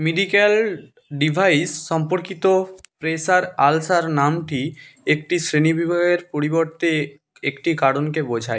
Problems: none marked